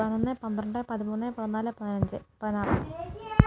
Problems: continuous background conversations, low volume